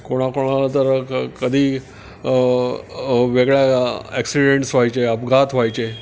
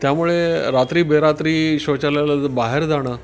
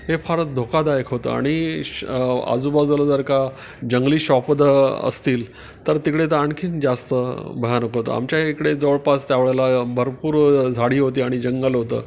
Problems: background sounds at intervals